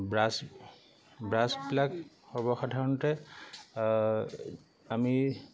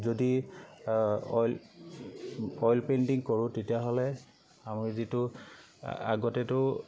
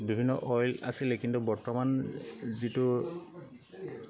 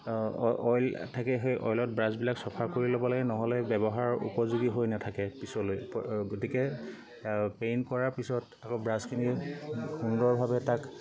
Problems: constant background noise